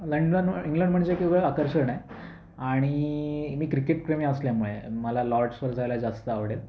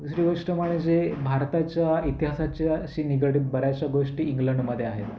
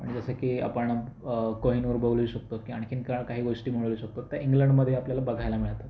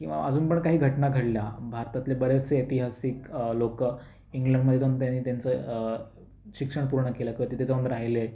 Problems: constant background noise, background conversations at intervals